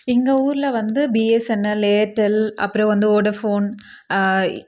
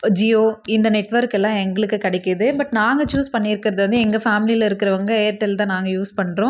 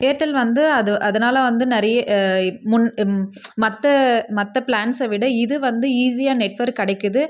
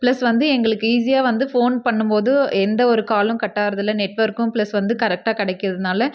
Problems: none marked